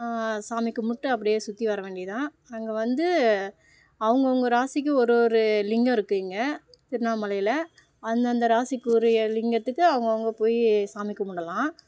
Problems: none marked